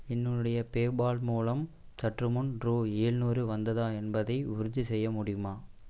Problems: constant background noise